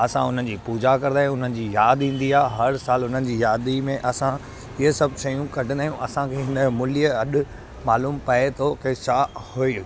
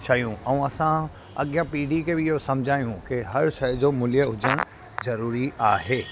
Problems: constant background noise